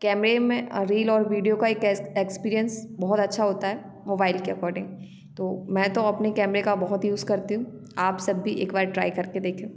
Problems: background sounds at intervals, background conversations at intervals